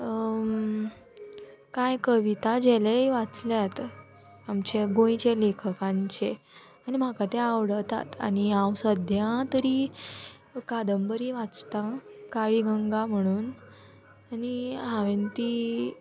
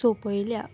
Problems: none marked